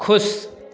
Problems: background conversations at intervals